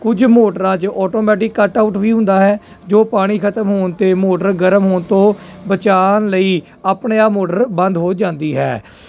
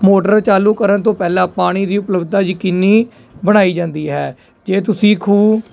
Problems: none marked